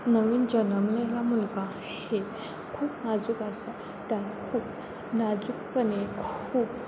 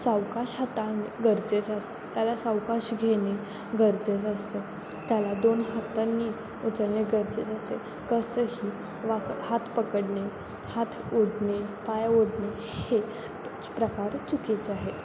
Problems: constant background noise